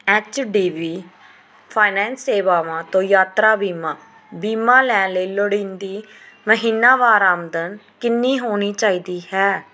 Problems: background sounds at intervals